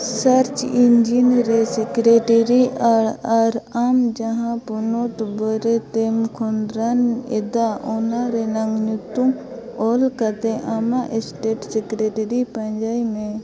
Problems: constant background noise, continuous background conversations